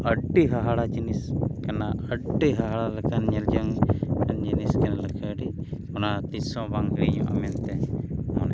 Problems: constant background noise